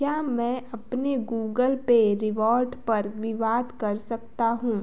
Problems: background sounds at intervals